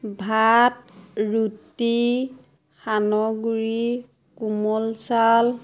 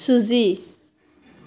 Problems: constant background noise